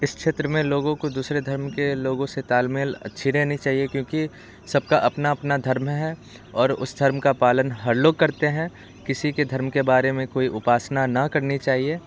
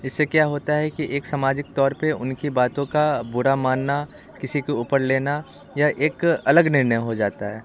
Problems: background sounds at intervals